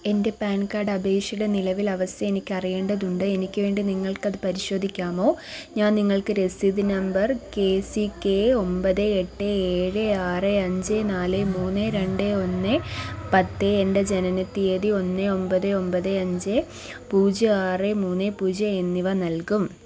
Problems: constant background noise